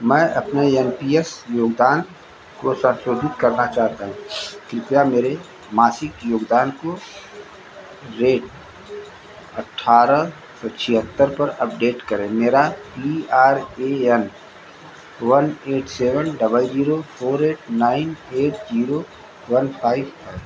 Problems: background sounds at intervals